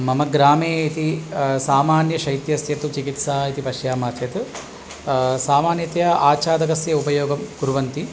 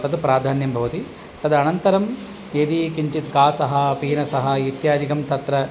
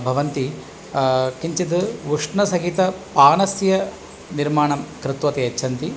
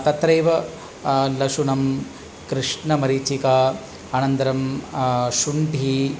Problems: none marked